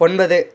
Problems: none marked